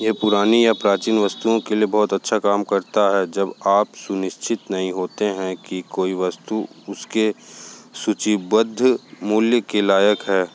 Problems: background sounds at intervals